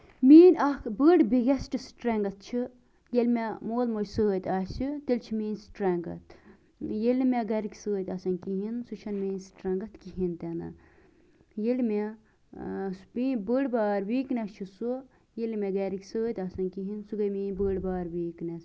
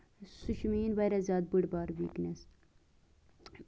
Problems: background sounds at intervals